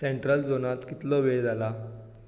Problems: echo